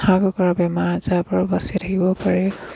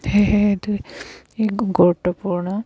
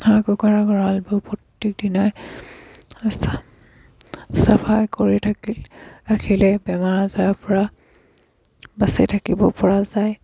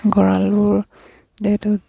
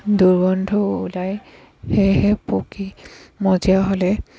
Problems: background sounds at intervals